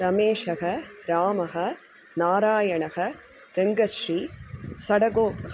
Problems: none marked